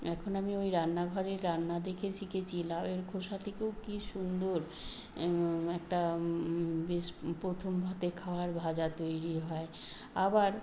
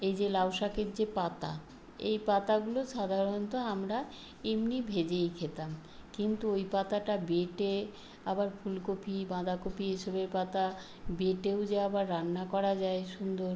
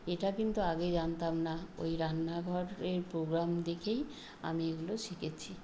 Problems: constant background noise